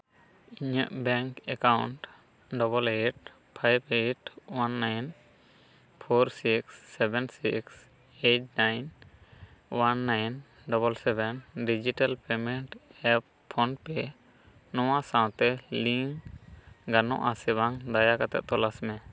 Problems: background conversations at intervals